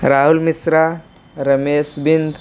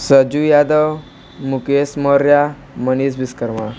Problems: none marked